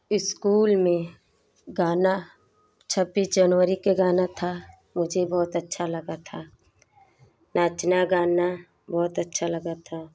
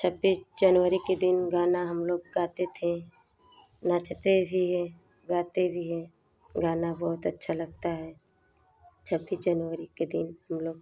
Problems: background sounds at intervals